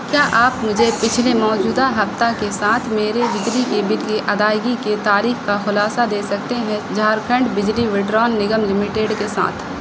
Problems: constant background noise